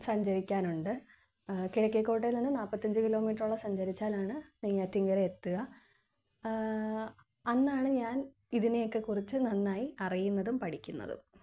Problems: low volume